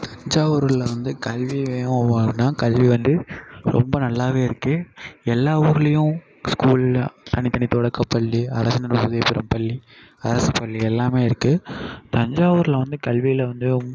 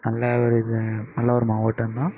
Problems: constant background noise, echo